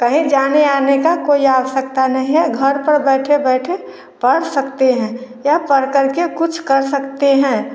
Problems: none marked